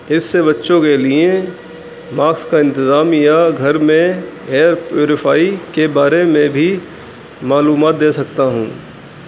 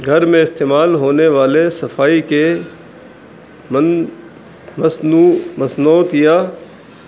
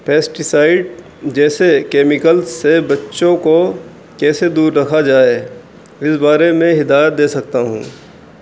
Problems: constant background noise